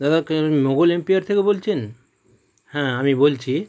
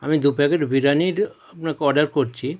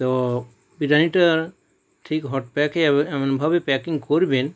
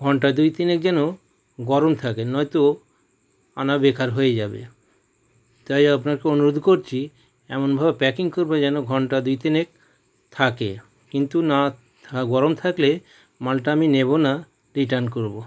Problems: background sounds at intervals